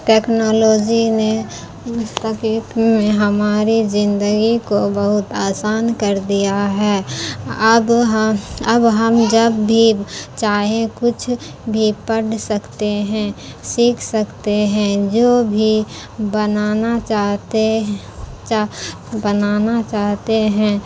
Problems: constant background noise